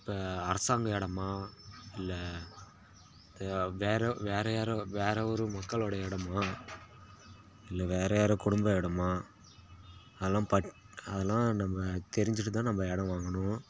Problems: constant background noise